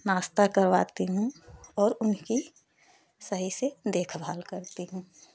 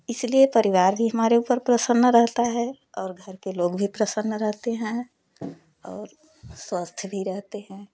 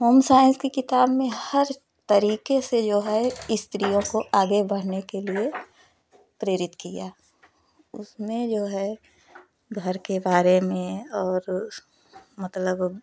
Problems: none marked